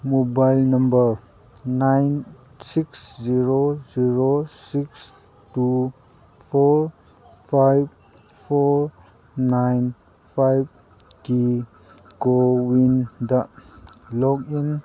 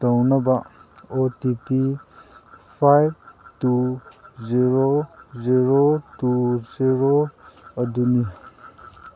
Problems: constant background noise